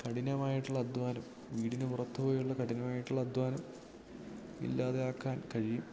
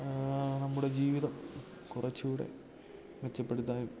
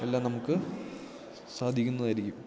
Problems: background sounds at intervals, low volume